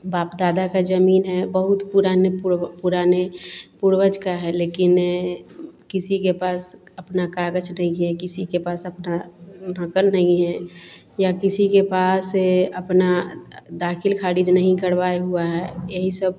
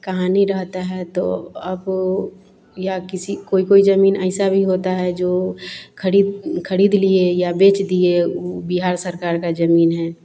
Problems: none marked